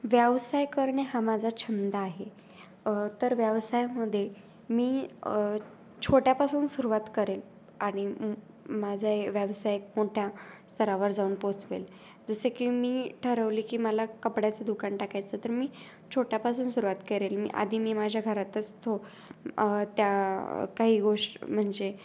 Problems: constant background noise, background conversations at intervals